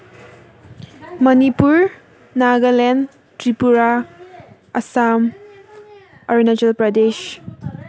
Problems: constant background noise